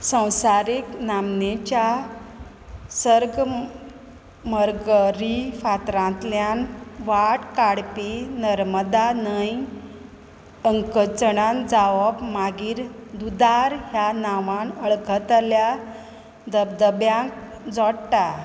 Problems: background sounds at intervals